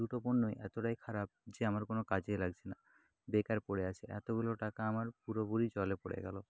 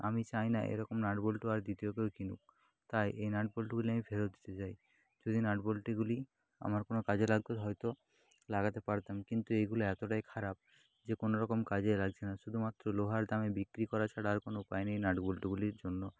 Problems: constant background noise